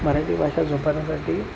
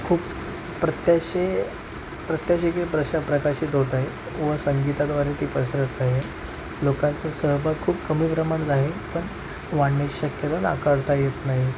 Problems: constant background noise